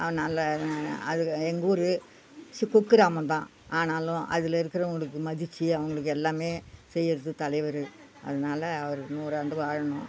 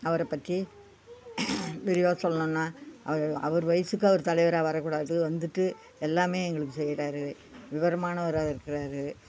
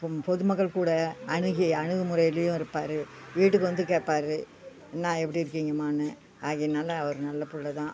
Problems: background conversations at intervals